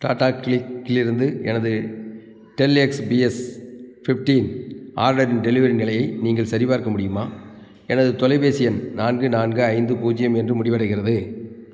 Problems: constant background noise